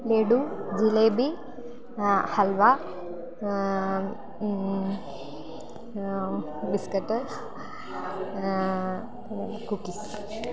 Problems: low volume